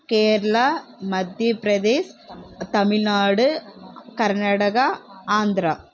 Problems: constant background noise